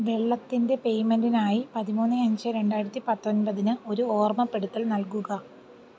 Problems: low volume